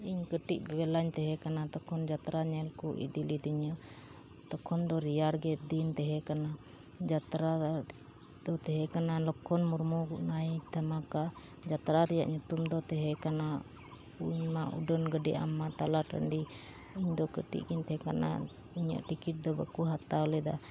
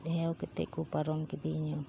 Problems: background sounds at intervals